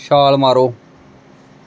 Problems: none marked